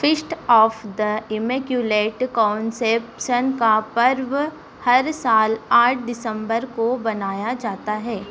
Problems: constant background noise